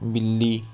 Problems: none marked